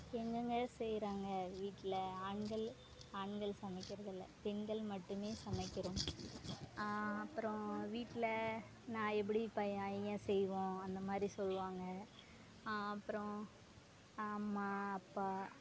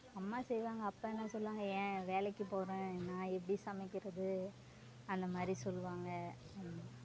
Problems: background sounds at intervals, low volume